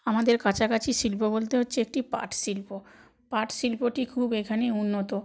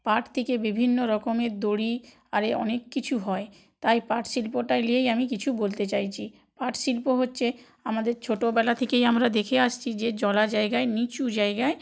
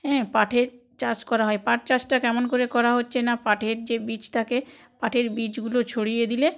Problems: background sounds at intervals